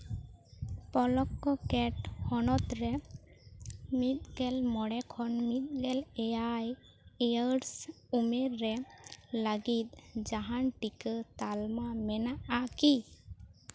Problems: background sounds at intervals